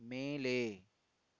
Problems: low volume